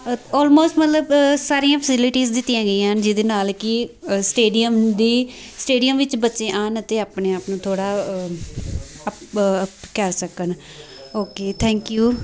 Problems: constant background noise